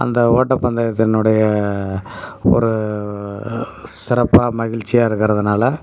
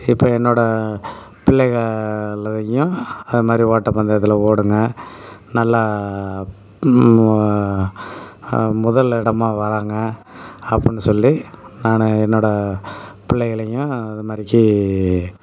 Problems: none marked